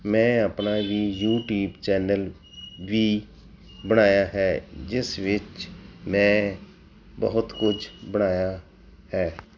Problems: background sounds at intervals